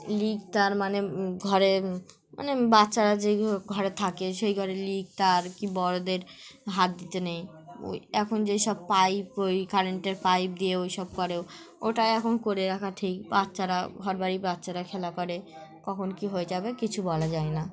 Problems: constant background noise, continuous background conversations